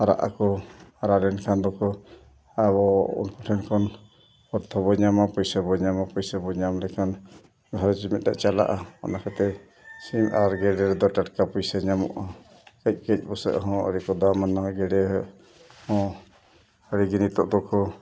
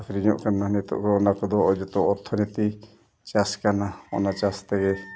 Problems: background sounds at intervals, background conversations at intervals